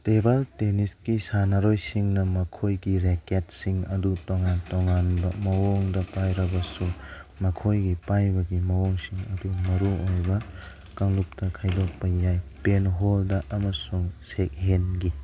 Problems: background sounds at intervals